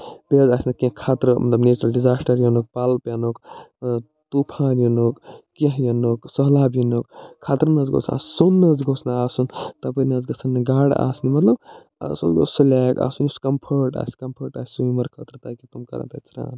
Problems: none marked